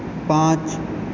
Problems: constant background noise, echo